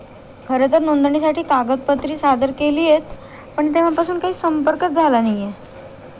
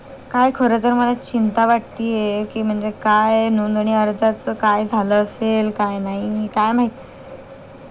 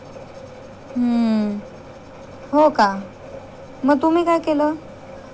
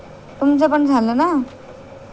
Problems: constant background noise